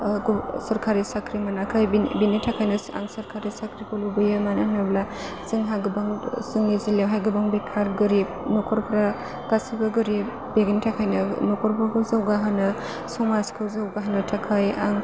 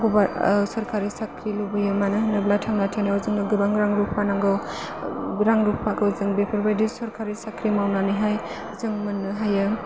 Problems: constant background noise